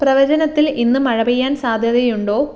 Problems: none marked